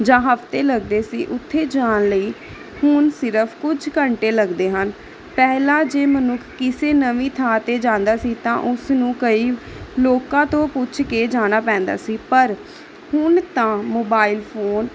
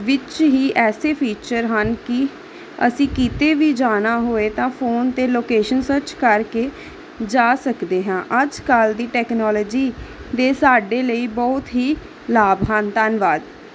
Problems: constant background noise